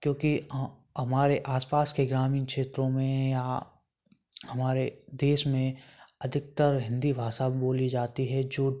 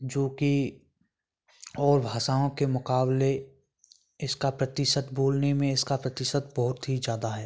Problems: none marked